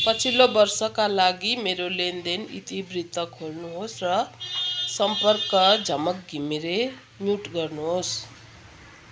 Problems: none marked